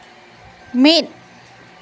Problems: none marked